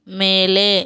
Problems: none marked